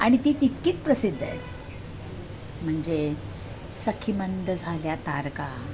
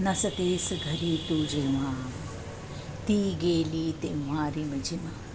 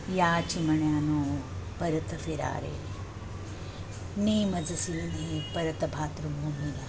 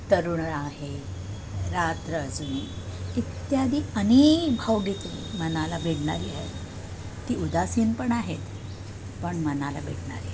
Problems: constant background noise, continuous background conversations